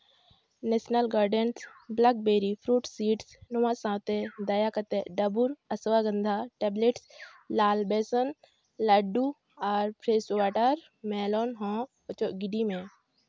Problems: background sounds at intervals